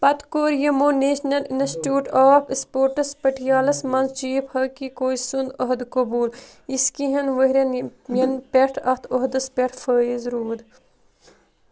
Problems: constant background noise